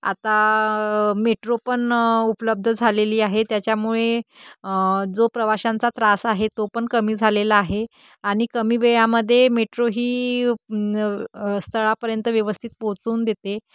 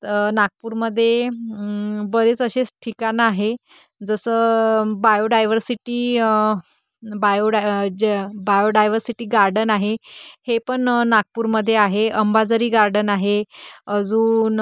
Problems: constant background noise